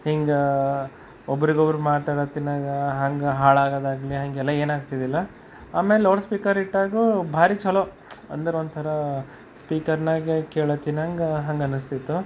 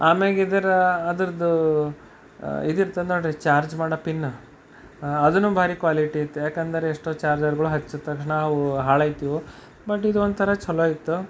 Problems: constant background noise, background conversations at intervals